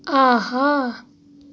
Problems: none marked